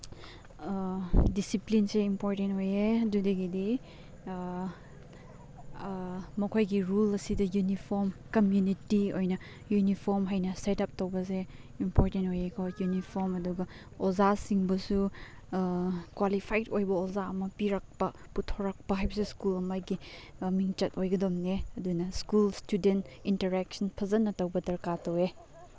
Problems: background conversations at intervals